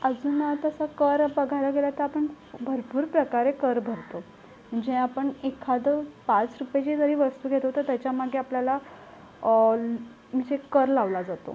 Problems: constant background noise, low volume